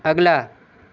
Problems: constant background noise